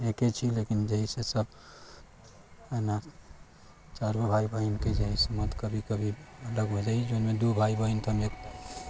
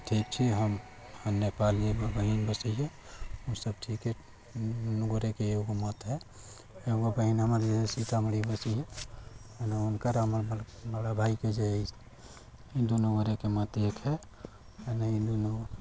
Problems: constant background noise, low volume